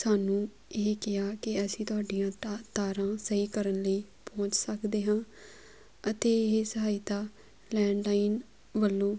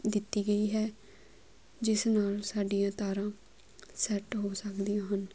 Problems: background sounds at intervals